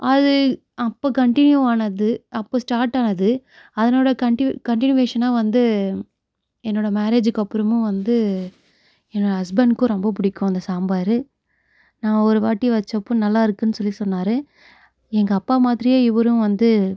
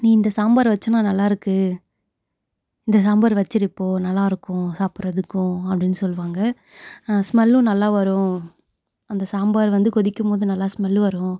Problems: none marked